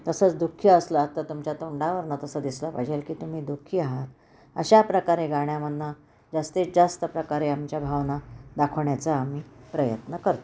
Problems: none marked